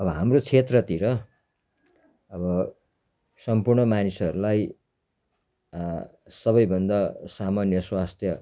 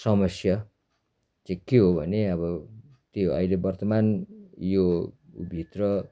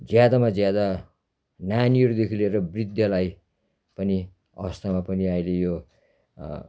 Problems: constant background noise